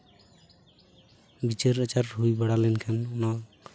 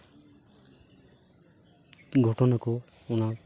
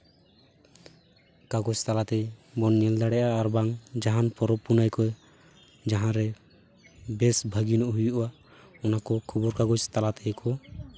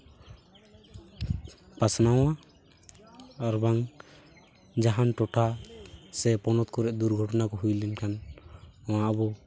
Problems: background sounds at intervals